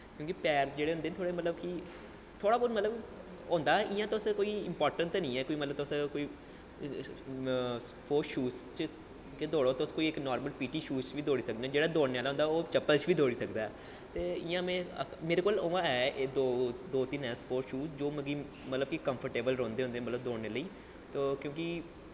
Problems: constant background noise, low volume